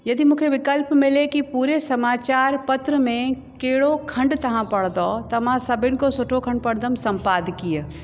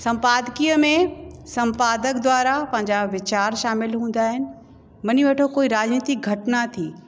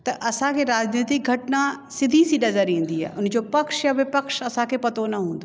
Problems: constant background noise, echo